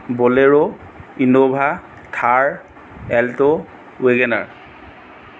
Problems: background sounds at intervals